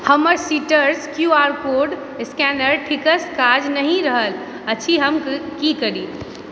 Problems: background sounds at intervals